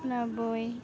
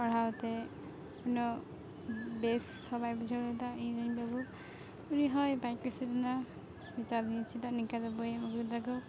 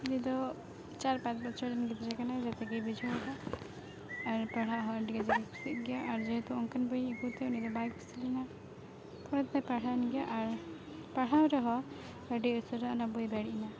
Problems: constant background noise, background conversations at intervals